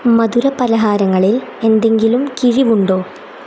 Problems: constant background noise